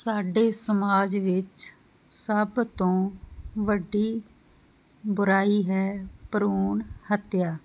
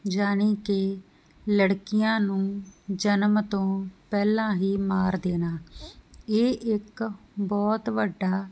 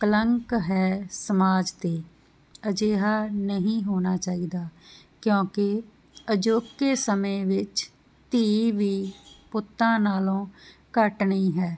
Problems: background sounds at intervals